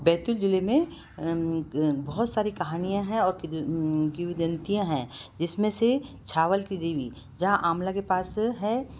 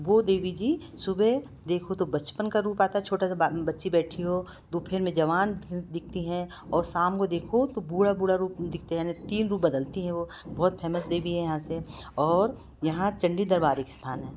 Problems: none marked